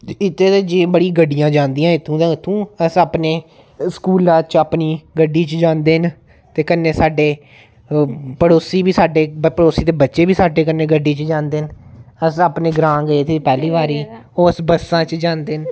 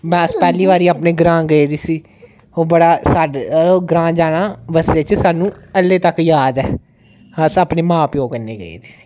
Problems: none marked